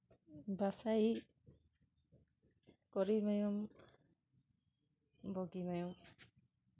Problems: none marked